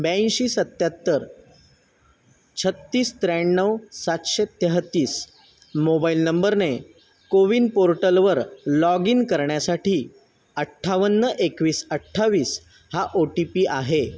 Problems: constant background noise